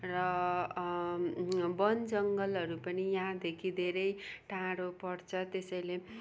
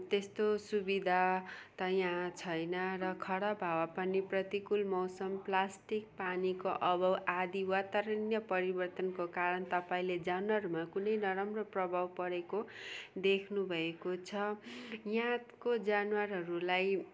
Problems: none marked